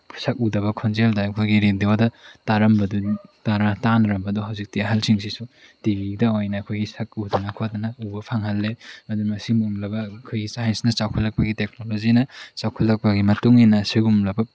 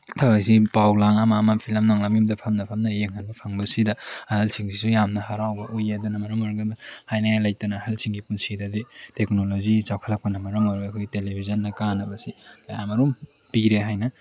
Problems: none marked